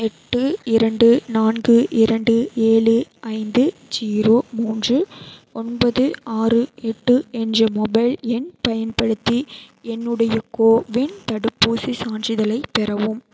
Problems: none marked